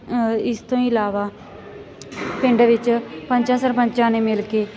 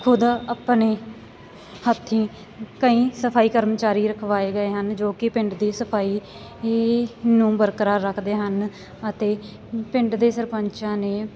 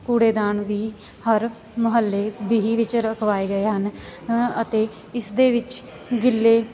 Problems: none marked